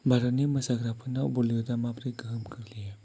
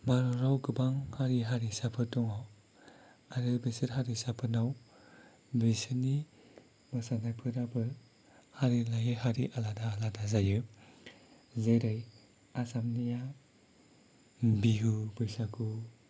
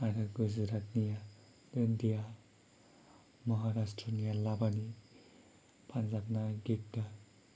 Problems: low volume